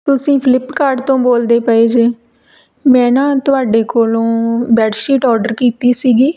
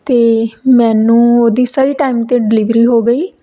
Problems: background conversations at intervals